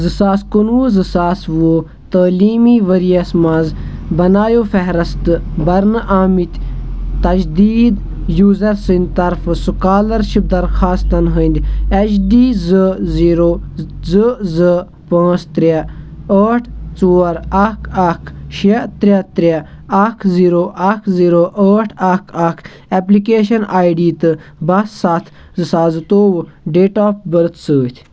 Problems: background sounds at intervals